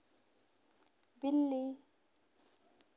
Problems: constant background noise